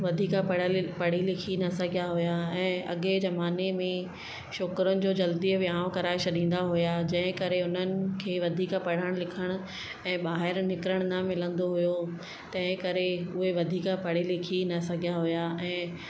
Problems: constant background noise, echo